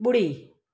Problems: none marked